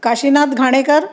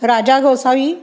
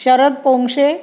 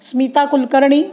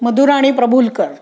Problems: none marked